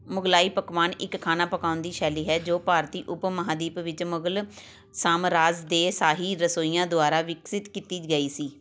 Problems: background sounds at intervals